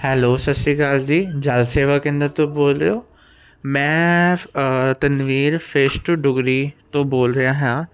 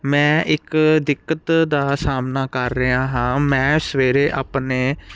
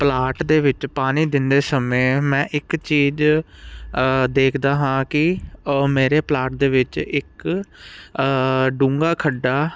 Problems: none marked